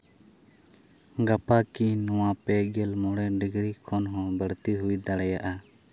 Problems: none marked